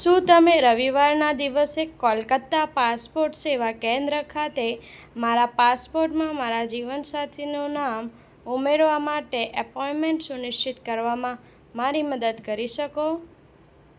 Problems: none marked